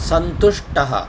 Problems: constant background noise